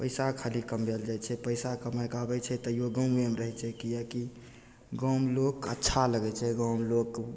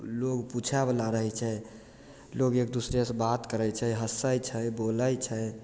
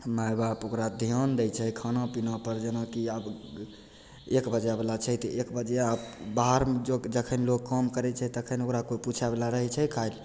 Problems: none marked